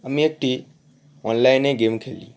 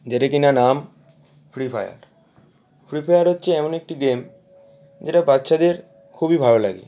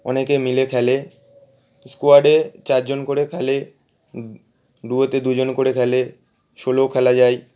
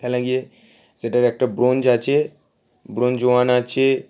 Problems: none marked